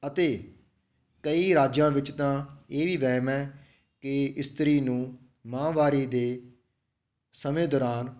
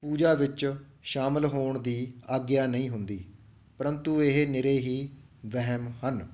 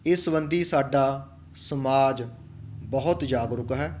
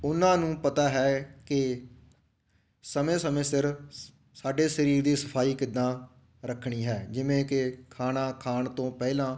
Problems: background sounds at intervals